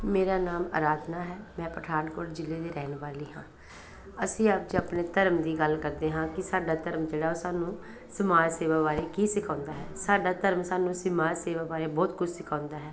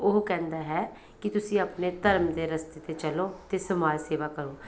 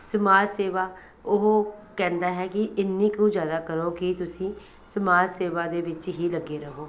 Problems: none marked